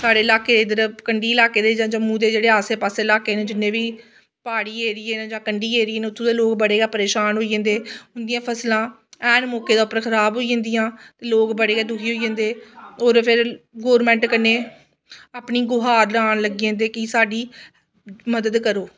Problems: none marked